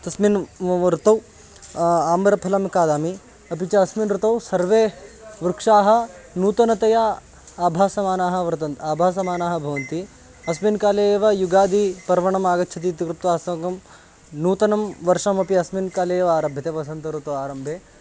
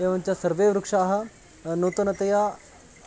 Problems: none marked